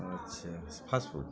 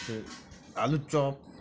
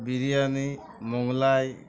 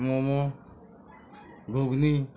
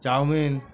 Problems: constant background noise, continuous background conversations